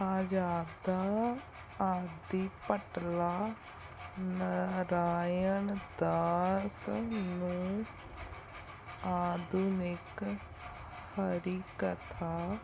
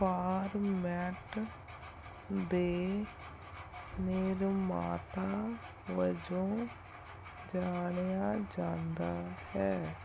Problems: background sounds at intervals